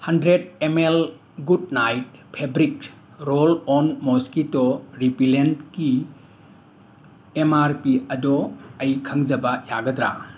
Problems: constant background noise